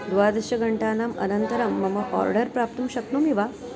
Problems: constant background noise